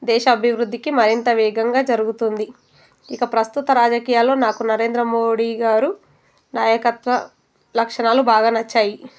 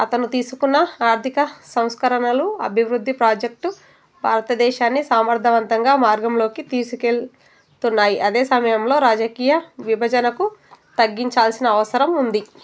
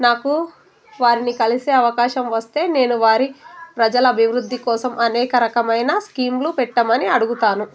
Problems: constant background noise